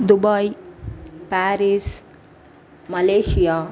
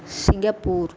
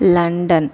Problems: echo